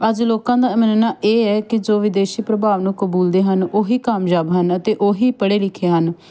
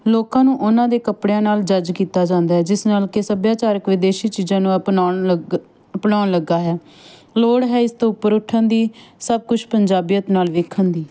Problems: constant background noise